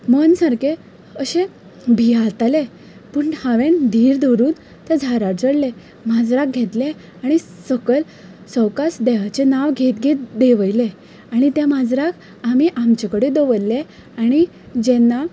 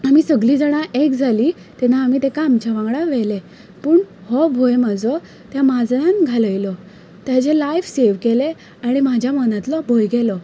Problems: constant background noise